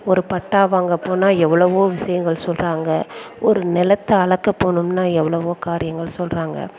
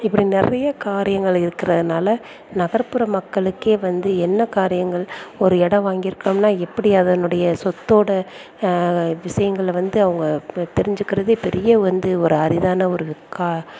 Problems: background conversations at intervals